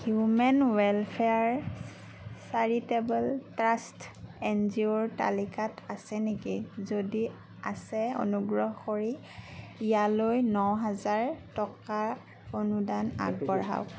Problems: background sounds at intervals, background conversations at intervals